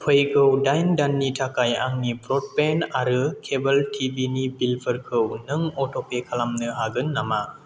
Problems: none marked